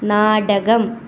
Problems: background sounds at intervals